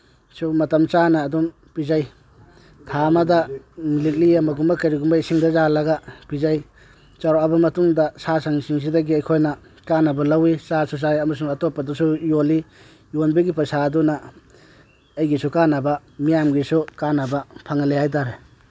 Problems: none marked